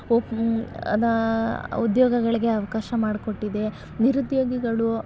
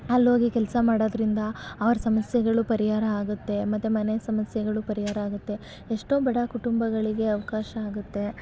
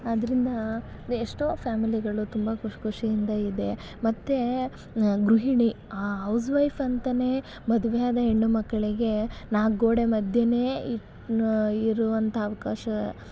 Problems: background sounds at intervals